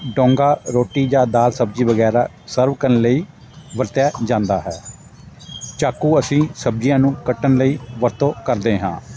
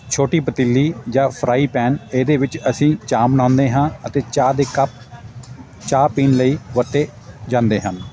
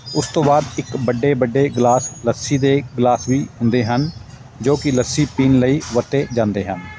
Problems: constant background noise, continuous background conversations